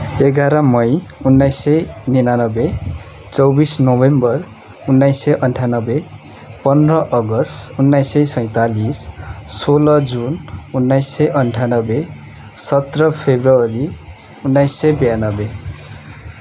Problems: constant background noise